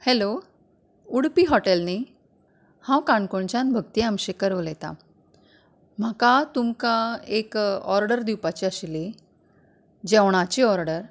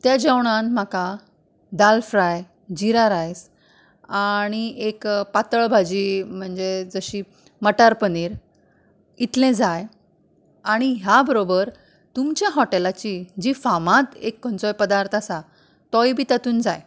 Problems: background conversations at intervals